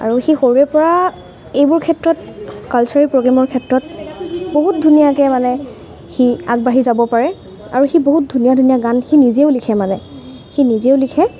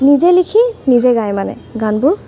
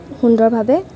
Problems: constant background noise, background conversations at intervals